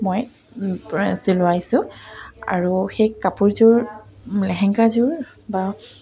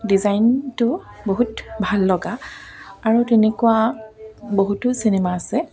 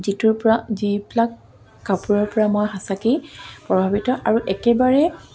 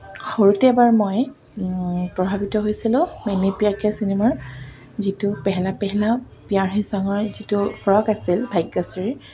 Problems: none marked